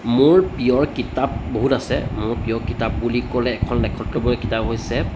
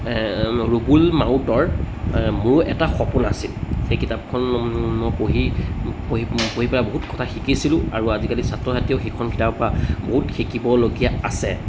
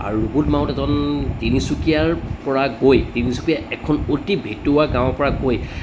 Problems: background sounds at intervals